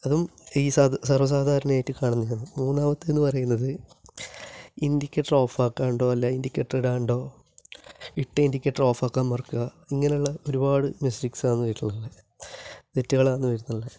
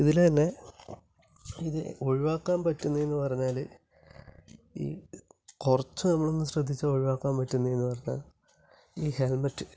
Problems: low volume